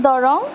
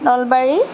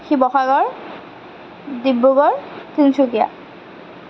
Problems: constant background noise